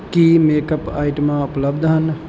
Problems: none marked